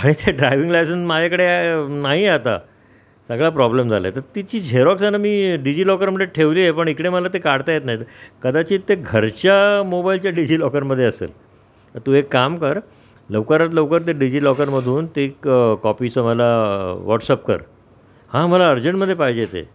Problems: none marked